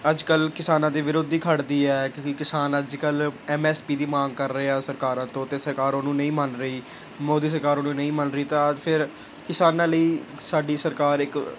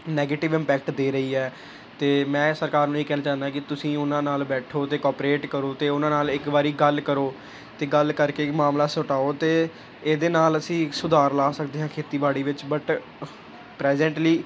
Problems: none marked